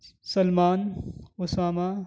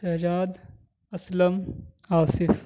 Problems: none marked